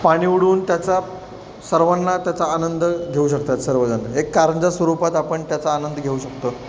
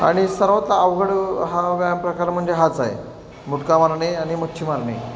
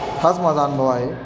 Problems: constant background noise